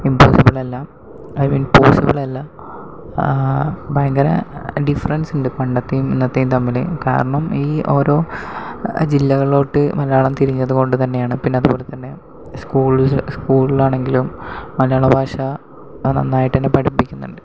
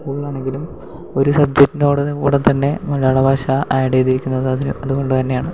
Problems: background sounds at intervals, low volume